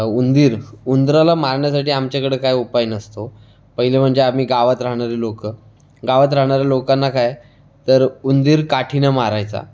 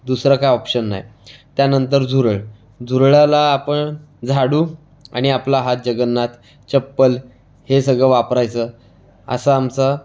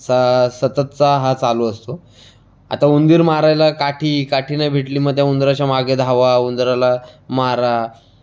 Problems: constant background noise